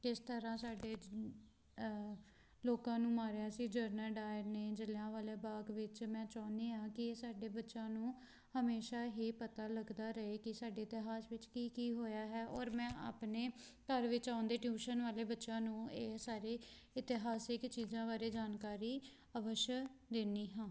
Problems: constant background noise